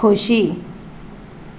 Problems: constant background noise